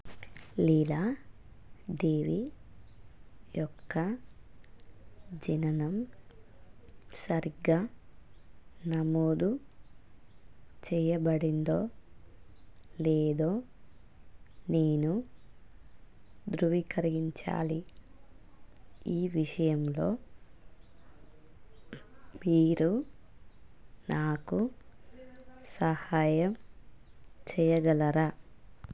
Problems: none marked